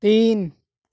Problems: none marked